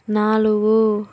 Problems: none marked